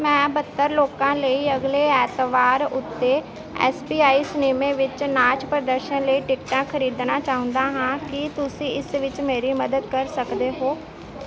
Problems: constant background noise